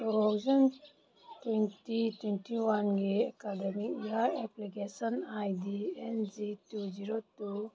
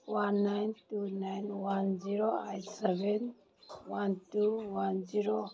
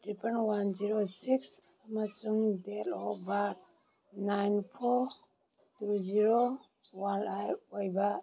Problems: background conversations at intervals